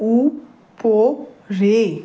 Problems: constant background noise